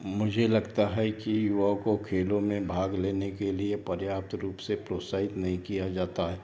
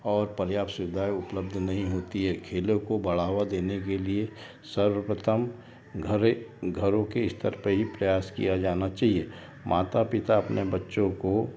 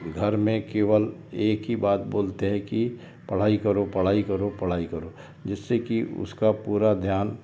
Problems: background sounds at intervals